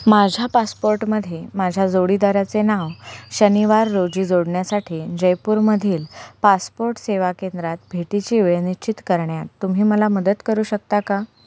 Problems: none marked